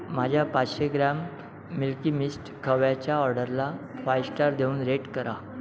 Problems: background sounds at intervals, background conversations at intervals